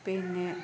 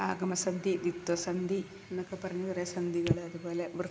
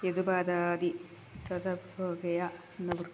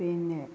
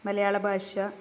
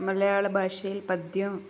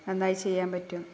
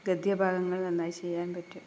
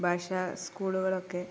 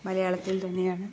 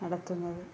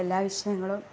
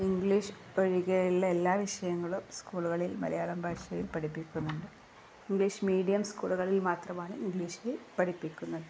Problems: none marked